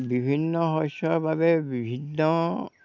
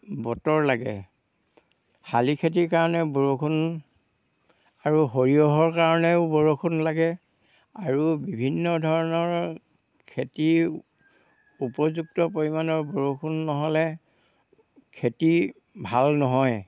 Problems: background sounds at intervals